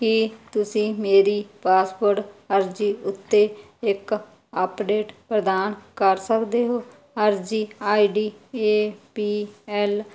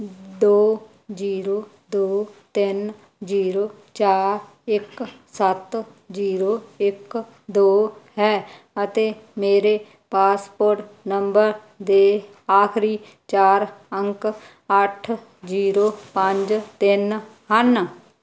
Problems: background sounds at intervals